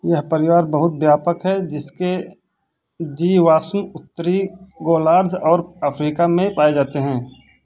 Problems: none marked